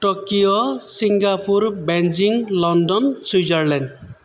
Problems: none marked